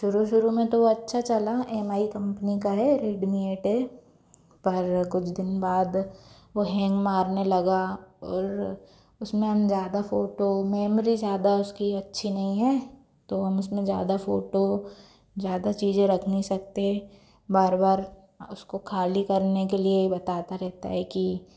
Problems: background sounds at intervals